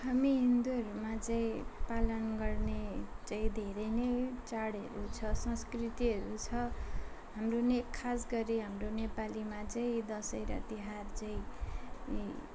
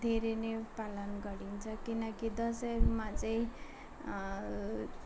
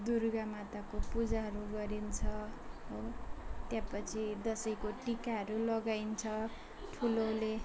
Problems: constant background noise, continuous background conversations